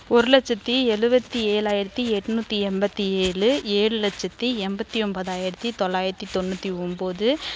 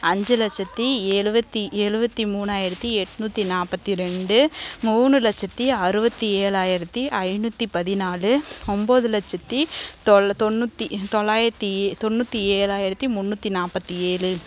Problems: background sounds at intervals